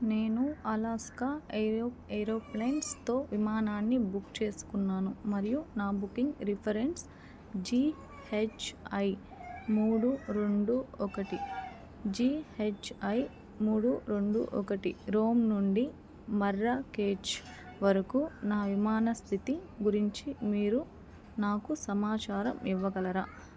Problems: background conversations at intervals